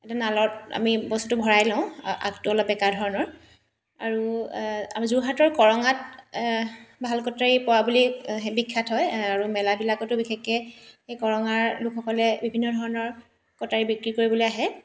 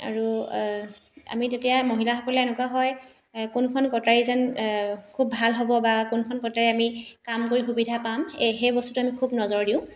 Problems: none marked